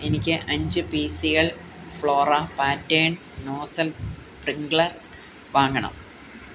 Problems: constant background noise